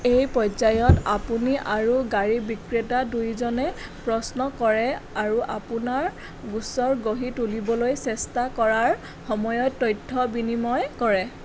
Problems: none marked